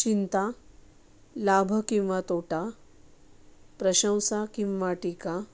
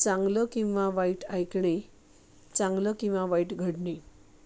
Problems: none marked